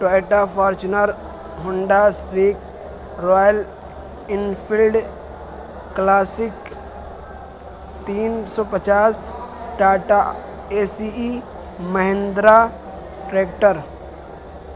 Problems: constant background noise